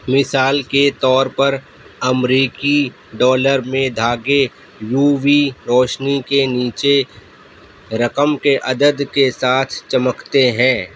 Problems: background sounds at intervals